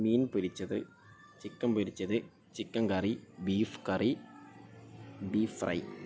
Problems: constant background noise, low volume